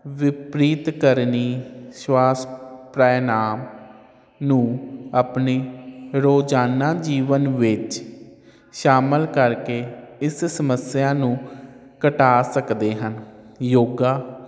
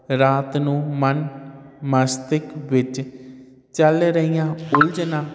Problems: none marked